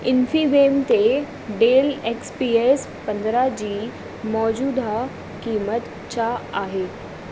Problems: constant background noise, echo